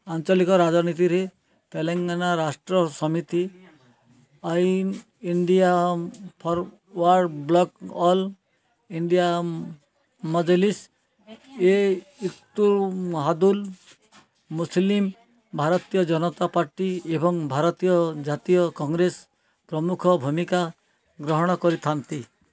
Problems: none marked